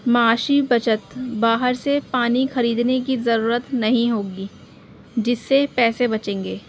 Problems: constant background noise